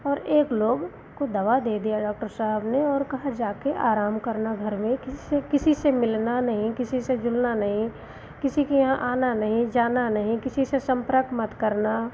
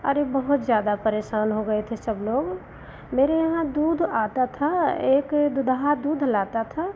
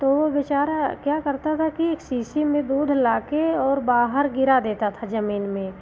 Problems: none marked